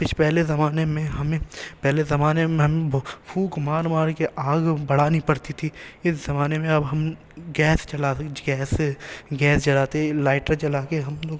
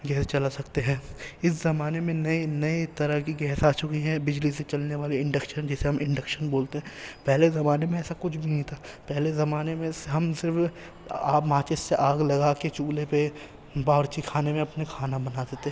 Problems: background sounds at intervals, background conversations at intervals